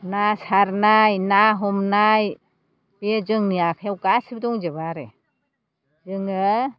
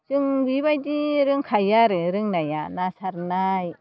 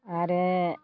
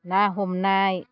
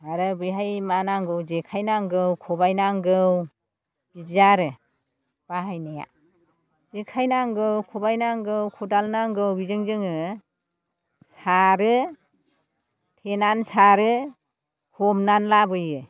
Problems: background sounds at intervals